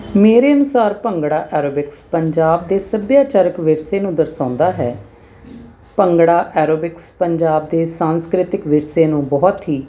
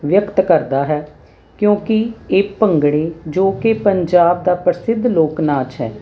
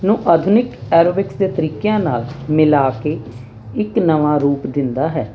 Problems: constant background noise